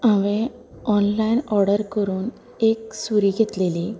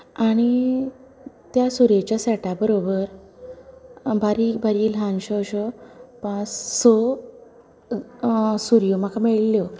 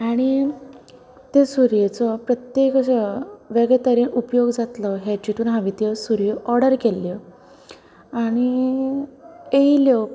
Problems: background sounds at intervals, background conversations at intervals